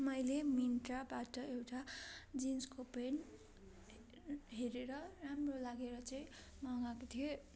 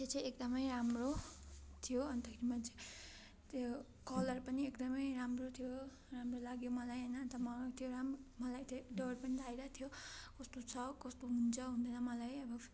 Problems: none marked